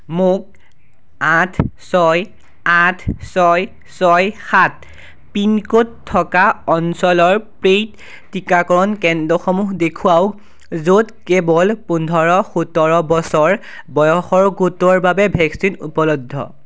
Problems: none marked